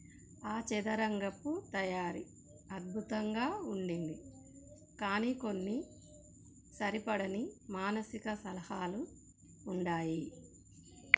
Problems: low volume